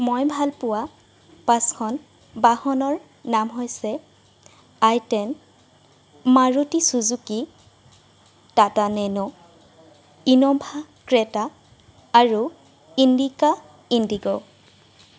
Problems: background sounds at intervals